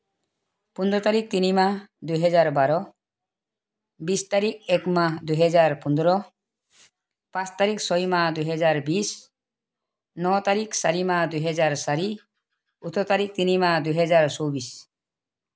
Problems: background sounds at intervals